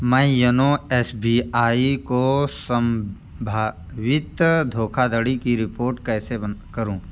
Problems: none marked